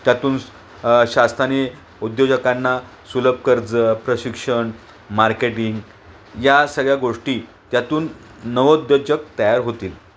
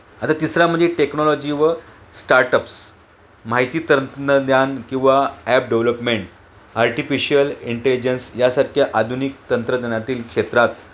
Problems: constant background noise